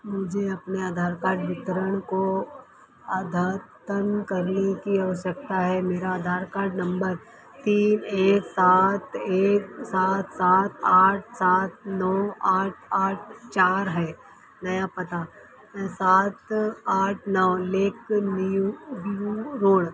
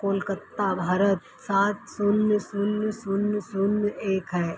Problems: constant background noise